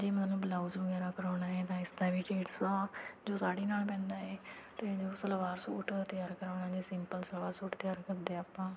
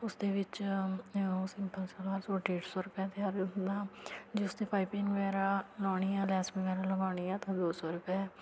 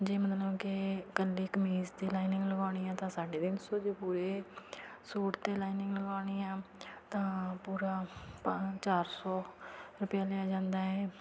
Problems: constant background noise